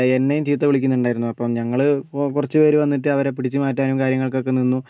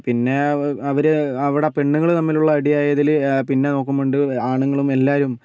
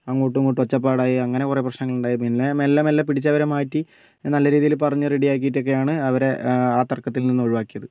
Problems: none marked